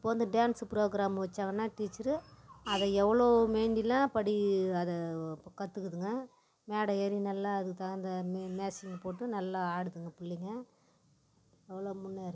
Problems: background sounds at intervals